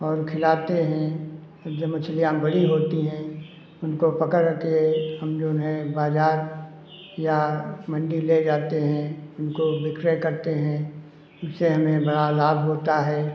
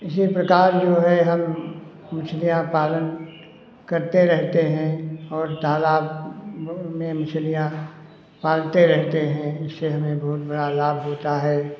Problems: constant background noise